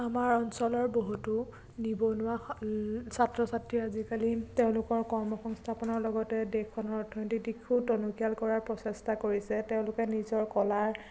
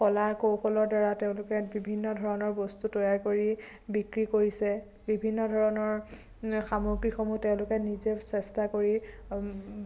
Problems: constant background noise, low volume